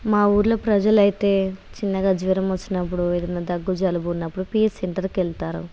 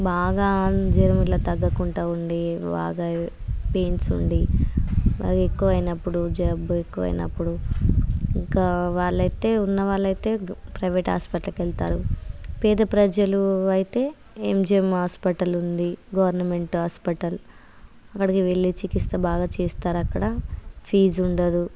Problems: none marked